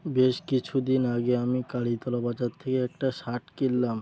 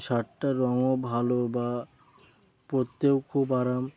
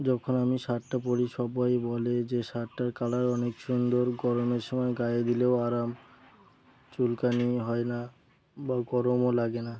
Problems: none marked